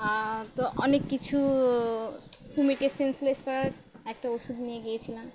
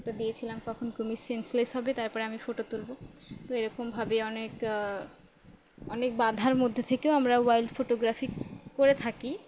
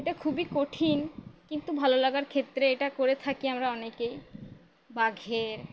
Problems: constant background noise